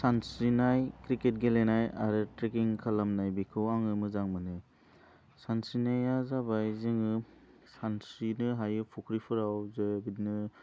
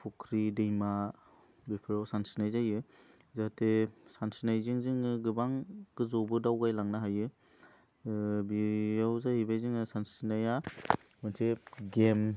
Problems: none marked